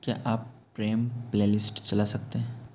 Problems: constant background noise